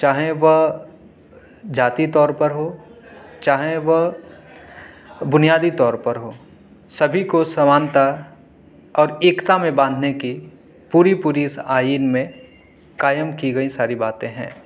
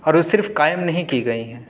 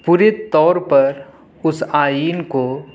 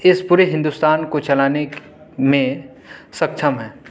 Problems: none marked